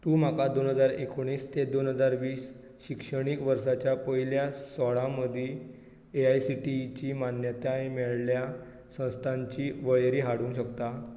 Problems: low volume